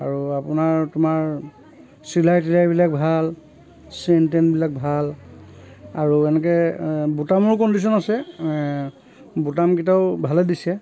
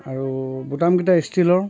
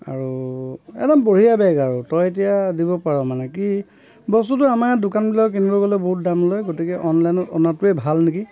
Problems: constant background noise, continuous background conversations